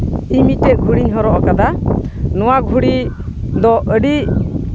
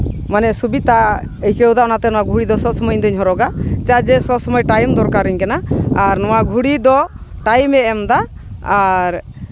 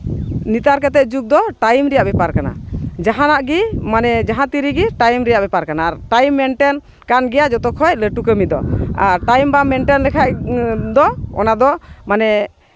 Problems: background sounds at intervals